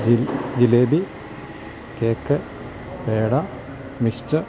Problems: constant background noise